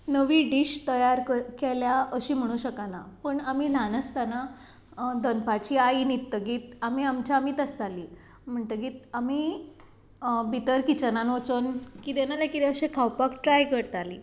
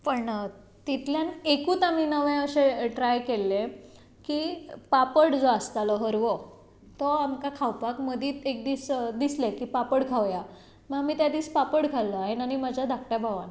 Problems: background sounds at intervals